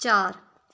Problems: none marked